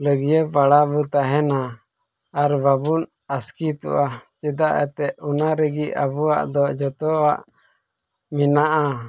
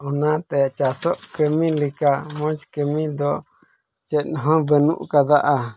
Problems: background sounds at intervals